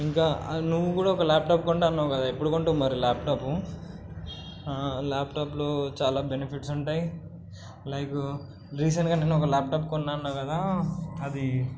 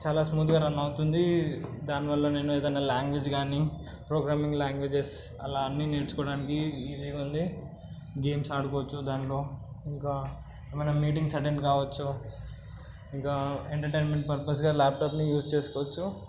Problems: constant background noise